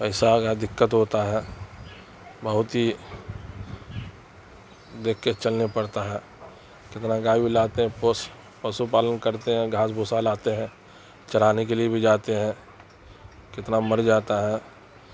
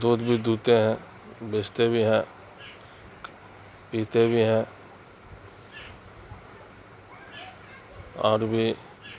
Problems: constant background noise